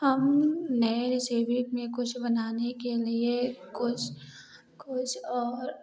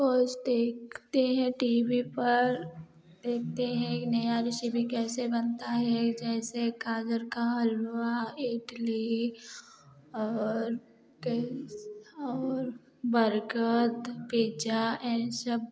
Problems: background sounds at intervals, continuous background conversations